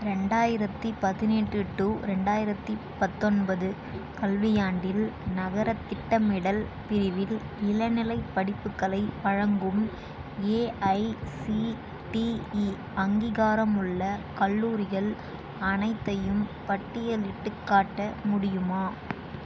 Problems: none marked